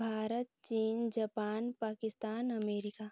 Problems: low volume